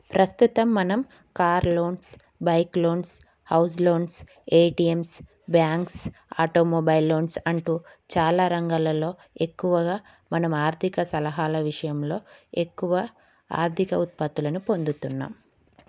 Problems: none marked